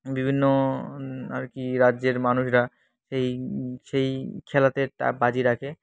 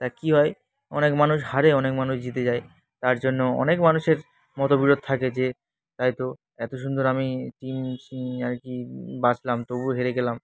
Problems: constant background noise, background conversations at intervals